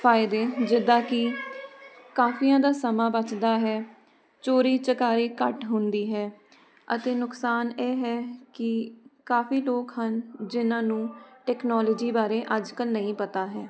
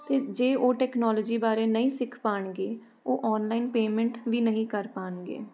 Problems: constant background noise